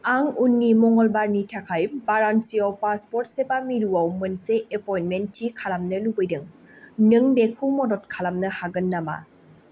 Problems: none marked